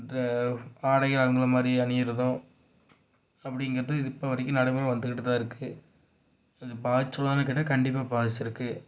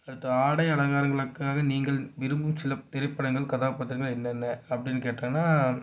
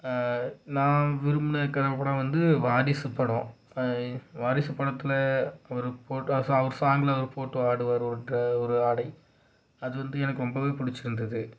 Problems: low volume